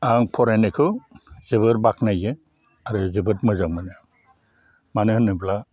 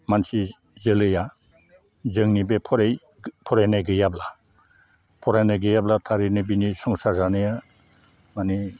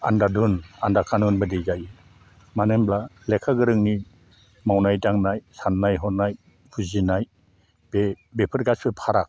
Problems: low volume